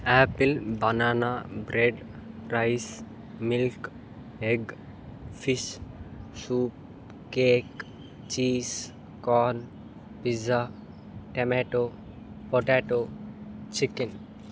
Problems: constant background noise